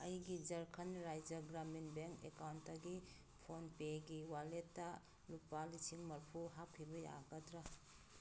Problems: background sounds at intervals